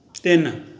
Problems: none marked